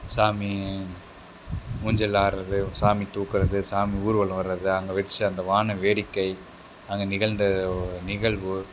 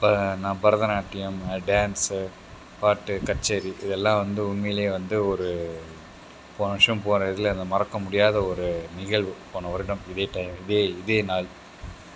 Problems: none marked